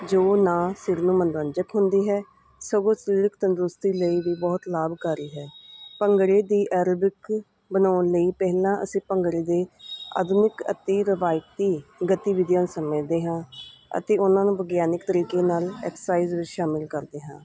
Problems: none marked